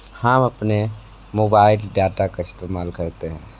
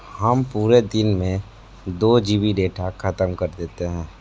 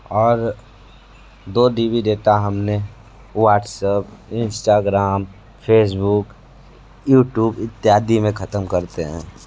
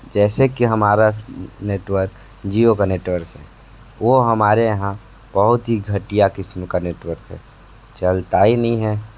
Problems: background sounds at intervals